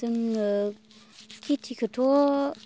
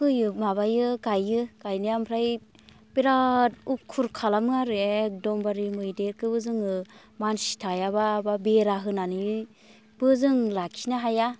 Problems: constant background noise